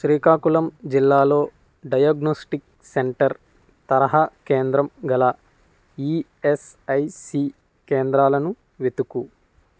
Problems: constant background noise